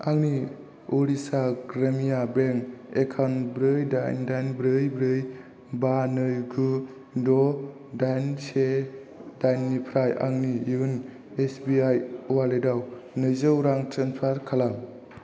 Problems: constant background noise